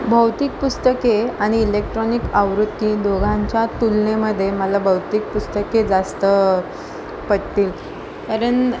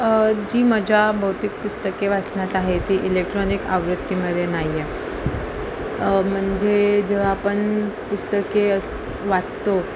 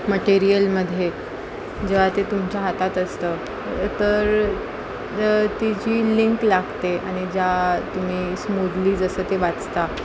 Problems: constant background noise